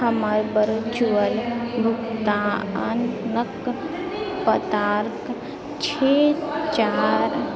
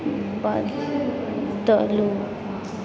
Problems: background sounds at intervals, continuous background conversations